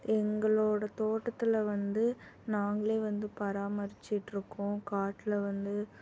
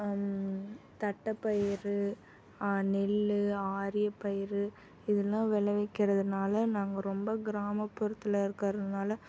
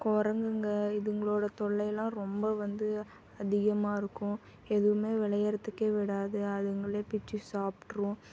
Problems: constant background noise